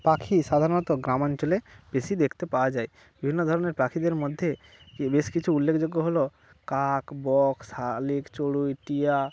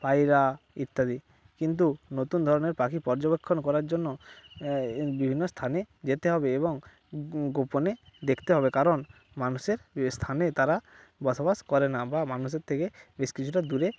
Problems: none marked